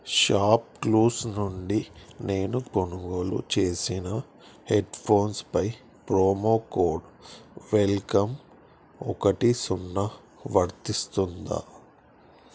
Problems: none marked